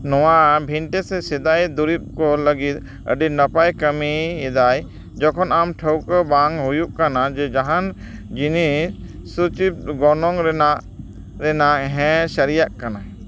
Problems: background sounds at intervals